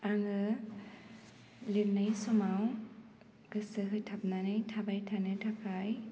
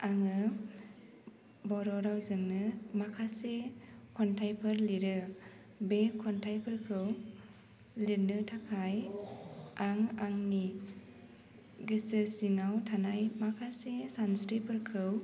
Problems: low volume